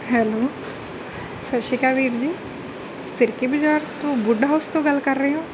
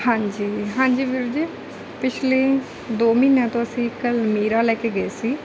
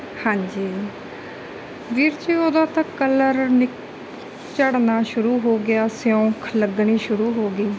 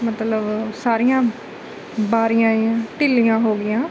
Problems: background sounds at intervals